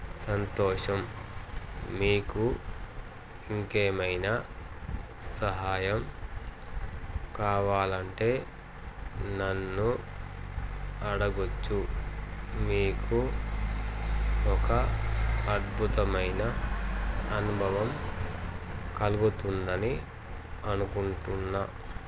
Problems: constant background noise